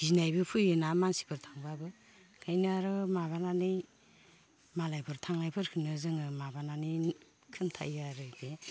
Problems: low volume